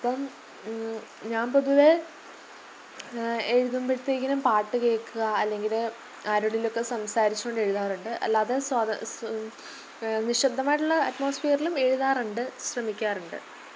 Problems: none marked